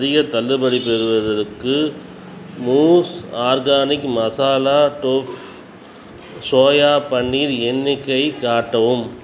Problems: constant background noise